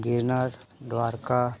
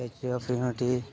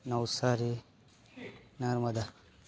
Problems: constant background noise